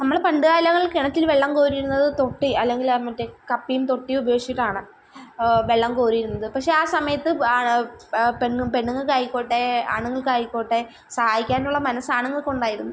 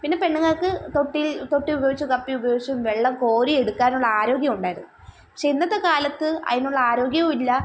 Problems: background sounds at intervals